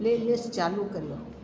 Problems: constant background noise, echo